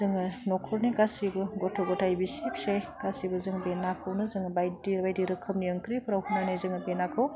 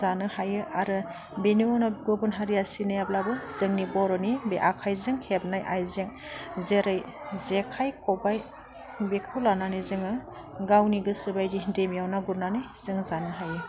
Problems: none marked